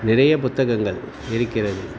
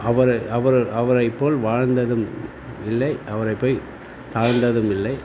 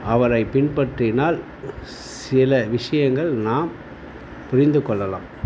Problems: none marked